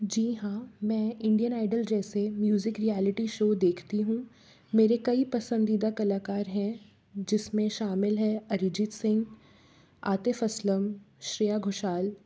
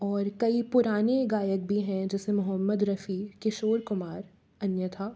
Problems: background sounds at intervals